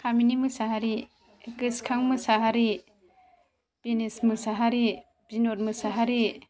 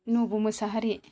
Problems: none marked